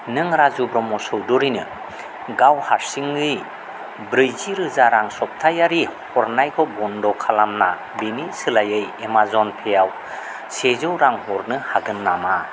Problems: background sounds at intervals